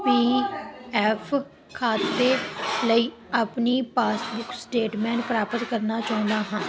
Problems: constant background noise